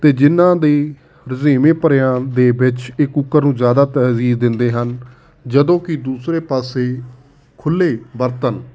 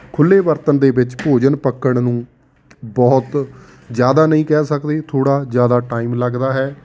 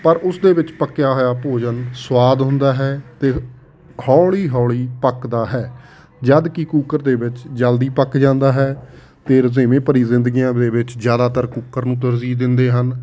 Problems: constant background noise